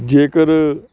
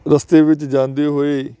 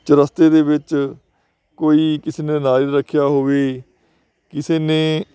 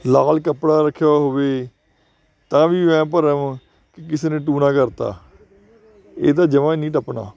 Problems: constant background noise